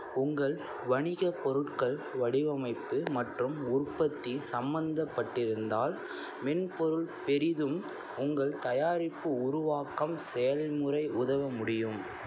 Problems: none marked